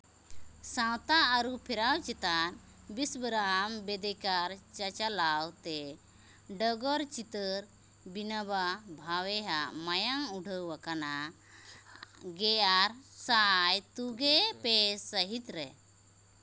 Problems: background sounds at intervals